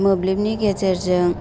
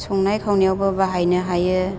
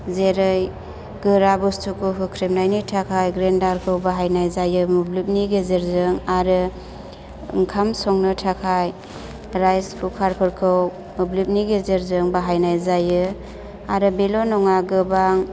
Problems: constant background noise